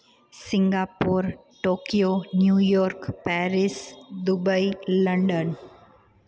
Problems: constant background noise, echo